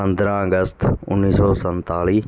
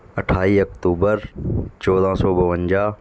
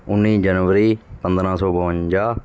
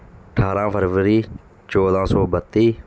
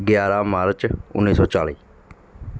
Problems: constant background noise